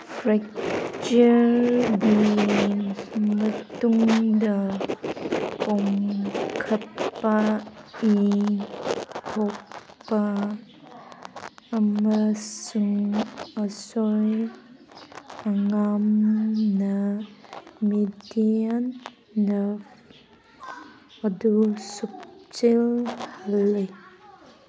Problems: background sounds at intervals, background conversations at intervals